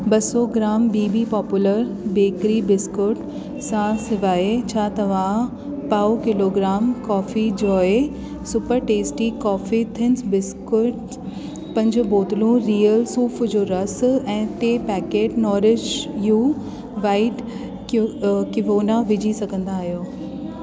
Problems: constant background noise, echo